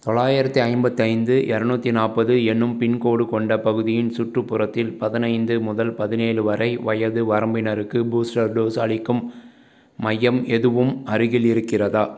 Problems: none marked